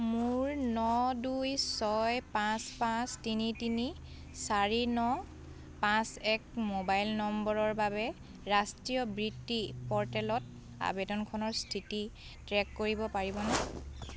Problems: background sounds at intervals